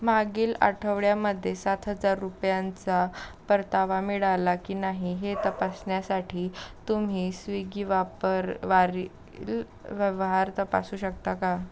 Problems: background sounds at intervals